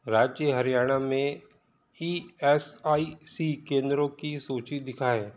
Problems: background sounds at intervals